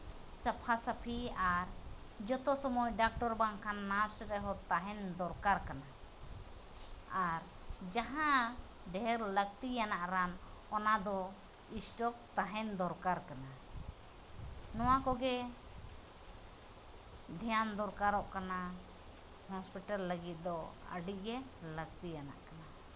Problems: background sounds at intervals